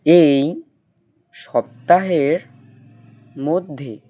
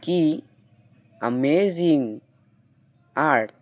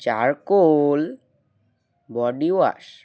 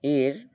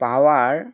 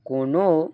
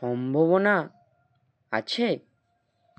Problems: background sounds at intervals